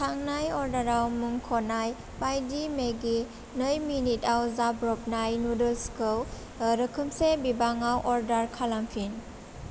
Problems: none marked